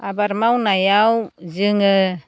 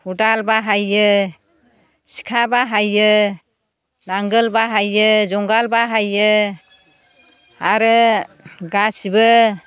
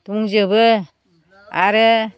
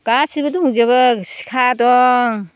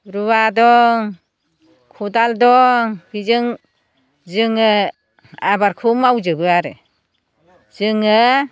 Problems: none marked